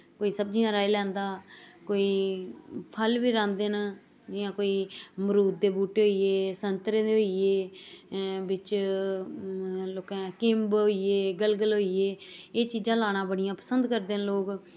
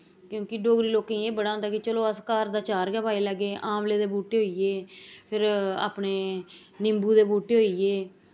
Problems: background sounds at intervals